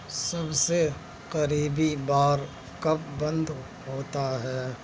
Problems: none marked